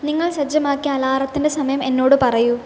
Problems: constant background noise